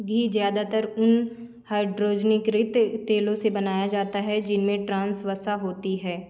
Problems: constant background noise